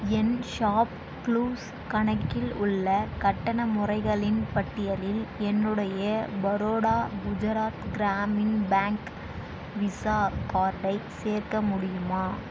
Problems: constant background noise